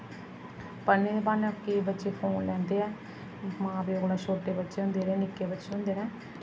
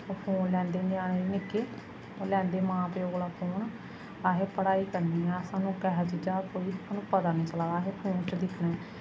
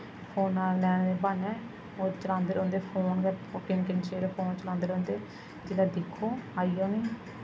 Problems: constant background noise, echo